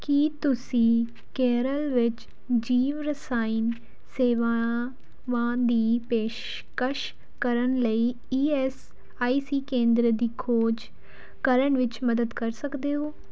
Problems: background sounds at intervals